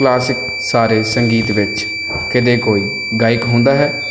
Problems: constant background noise